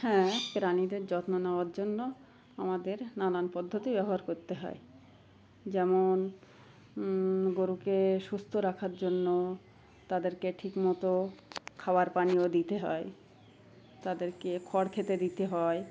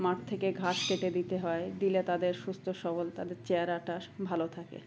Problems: constant background noise